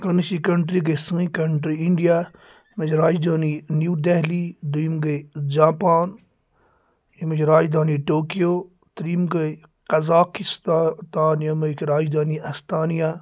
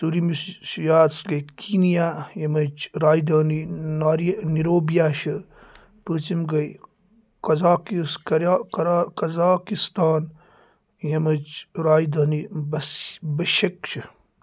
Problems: constant background noise